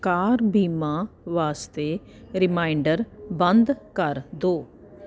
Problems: constant background noise